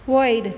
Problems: none marked